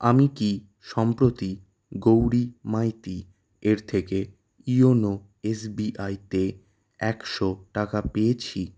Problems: none marked